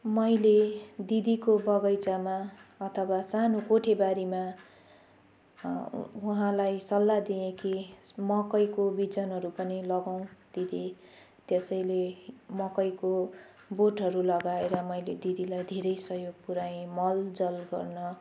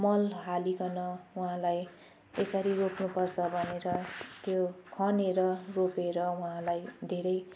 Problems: background sounds at intervals